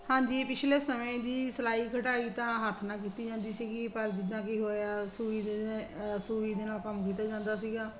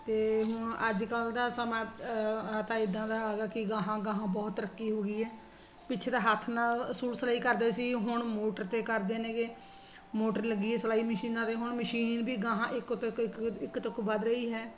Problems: constant background noise